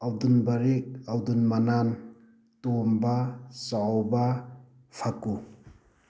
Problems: none marked